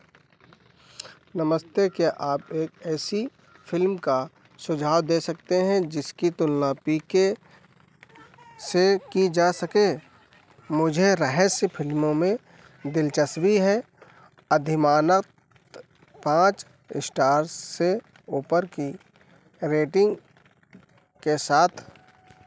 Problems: none marked